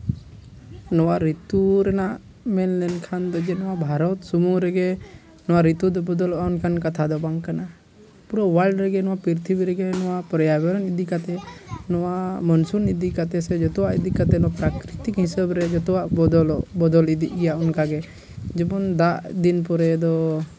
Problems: background sounds at intervals, low volume